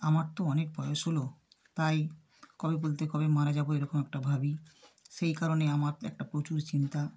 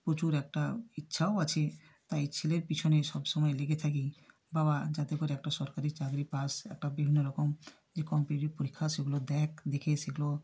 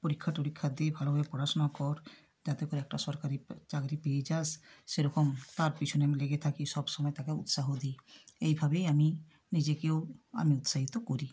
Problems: none marked